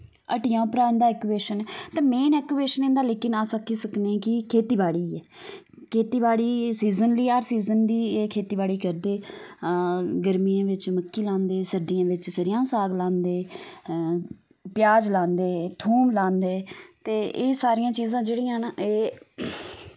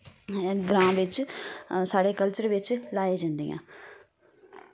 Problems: none marked